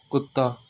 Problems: none marked